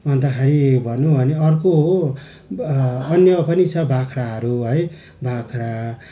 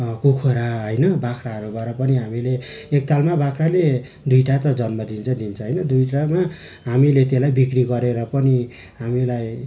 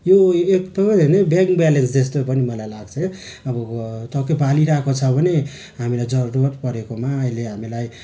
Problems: constant background noise